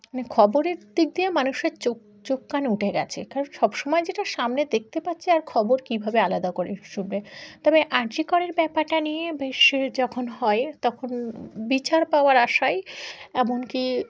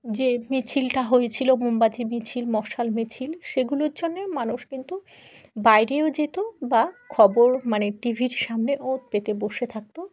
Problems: background conversations at intervals